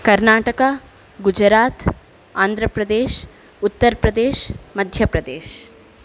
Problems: none marked